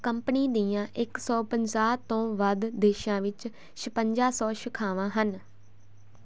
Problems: constant background noise